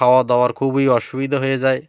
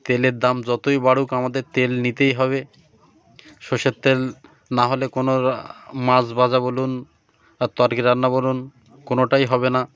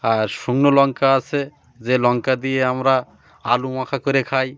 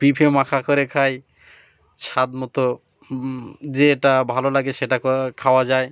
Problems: none marked